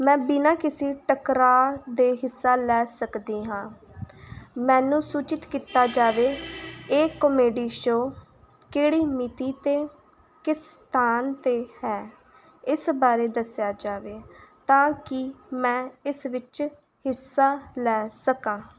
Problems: constant background noise